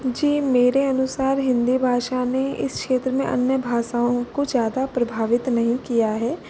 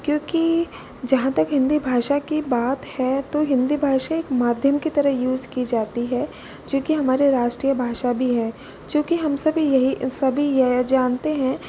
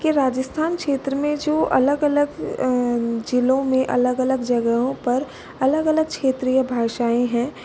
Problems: constant background noise